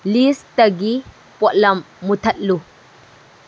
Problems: none marked